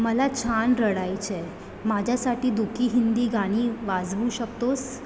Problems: none marked